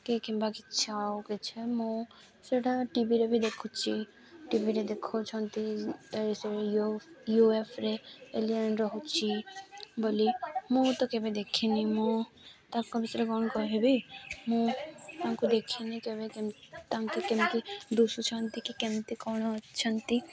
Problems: constant background noise